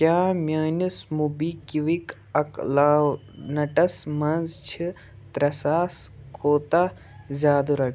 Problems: background sounds at intervals